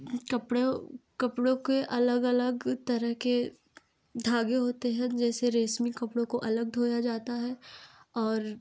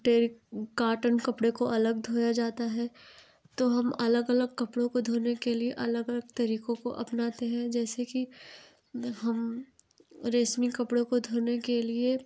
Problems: none marked